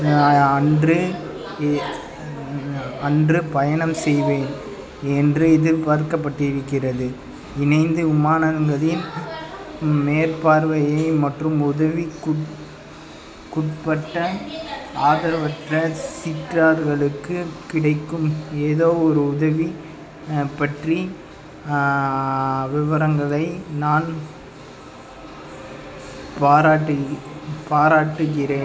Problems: constant background noise, background conversations at intervals